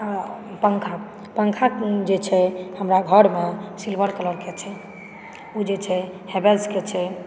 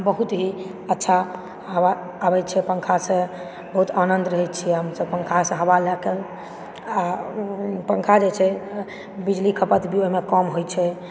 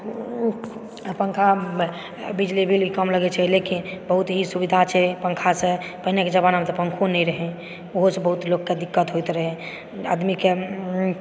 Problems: background sounds at intervals